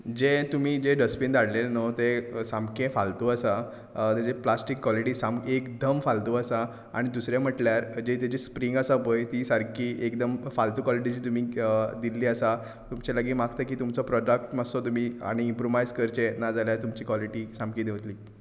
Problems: constant background noise